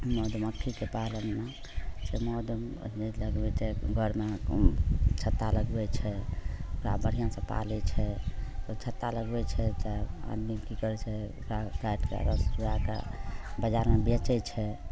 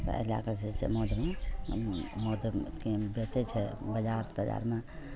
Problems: none marked